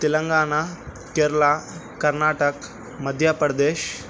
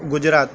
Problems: constant background noise